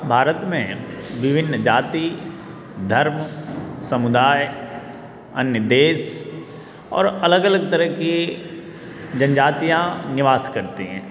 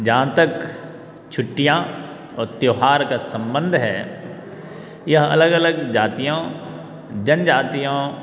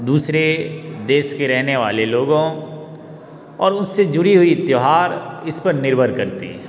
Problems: background sounds at intervals